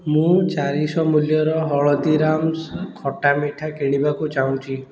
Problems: background sounds at intervals, background conversations at intervals